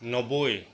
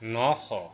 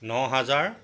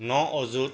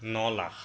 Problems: none marked